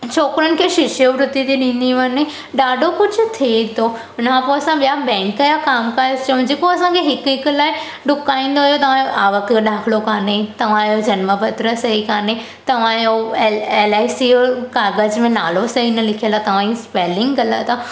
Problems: constant background noise